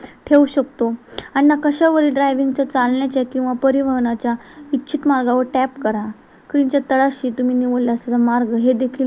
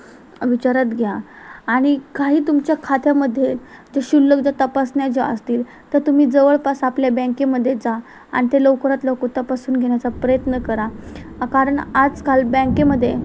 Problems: constant background noise